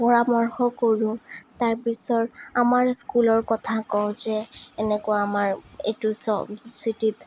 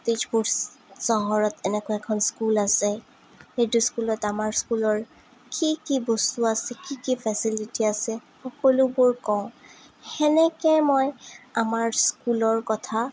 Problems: none marked